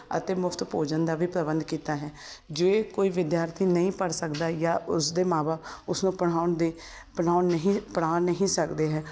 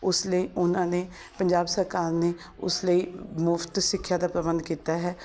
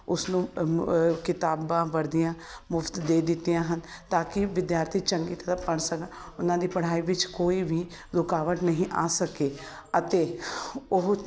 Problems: constant background noise